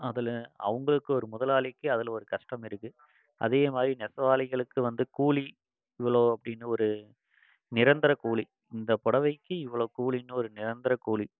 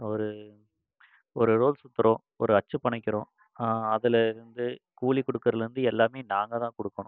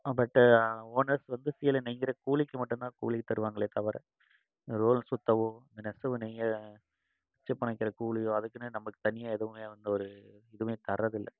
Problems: constant background noise